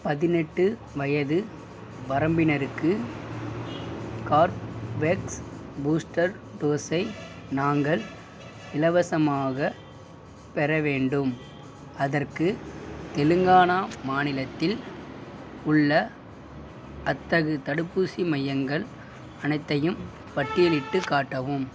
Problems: background sounds at intervals